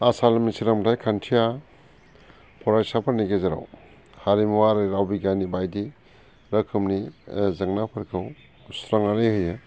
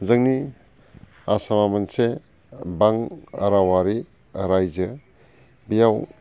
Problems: constant background noise